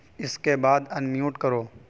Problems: constant background noise